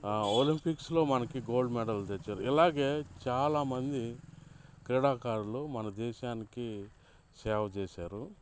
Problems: background sounds at intervals, background conversations at intervals